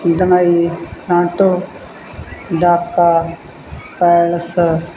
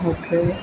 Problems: background conversations at intervals